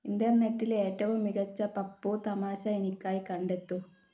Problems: low volume